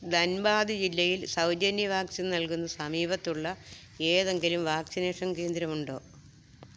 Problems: low volume